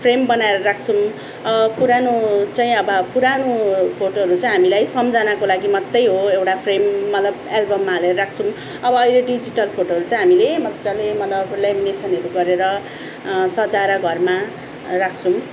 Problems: background sounds at intervals